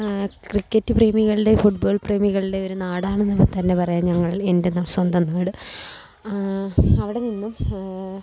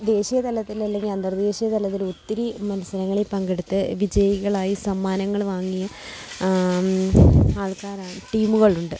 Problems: none marked